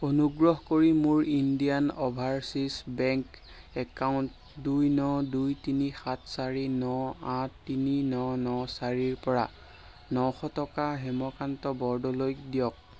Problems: none marked